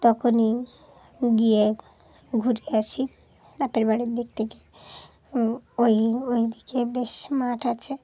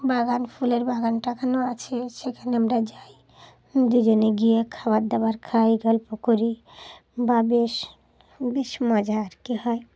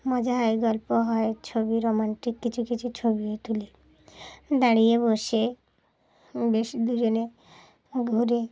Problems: background sounds at intervals